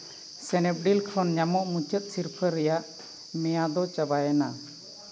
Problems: constant background noise